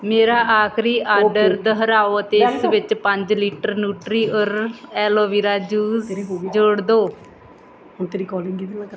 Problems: background conversations at intervals